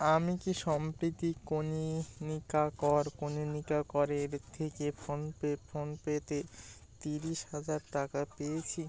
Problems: background sounds at intervals, background conversations at intervals, low volume